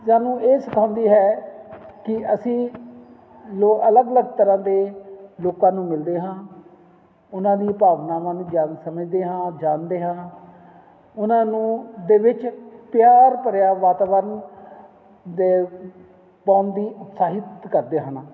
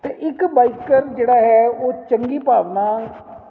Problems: none marked